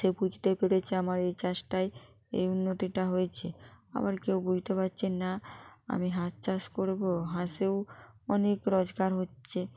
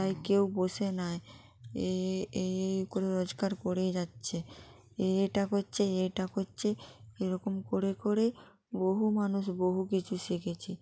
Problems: background sounds at intervals